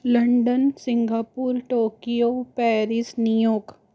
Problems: background sounds at intervals